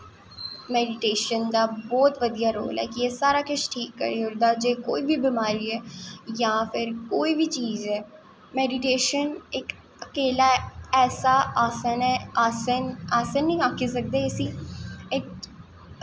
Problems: none marked